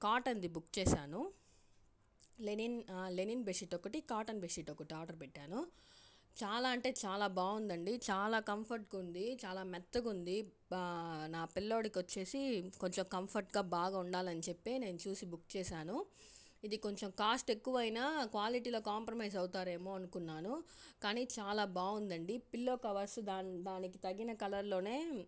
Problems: low volume